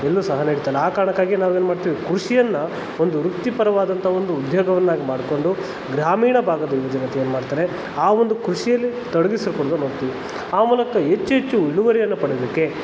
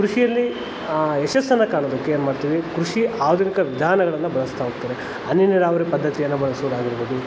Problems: constant background noise